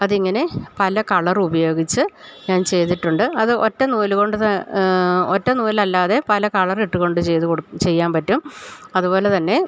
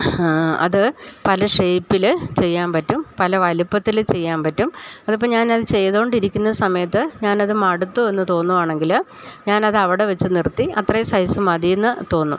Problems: none marked